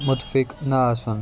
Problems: constant background noise